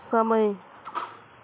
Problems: continuous background conversations